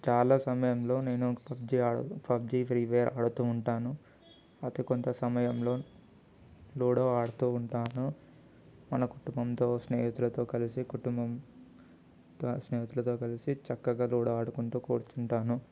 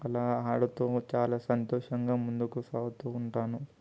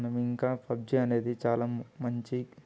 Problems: constant background noise